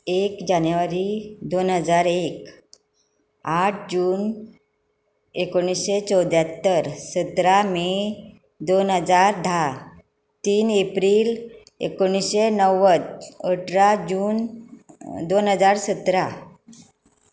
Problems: constant background noise